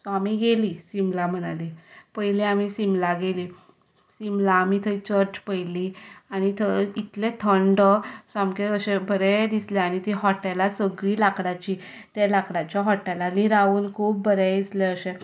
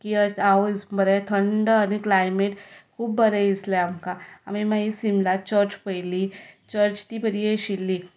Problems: none marked